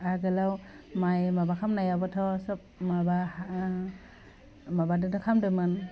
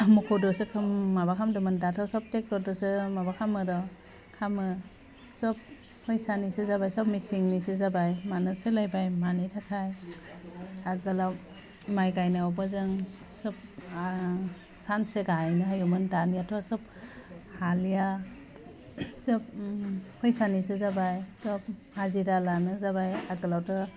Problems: low volume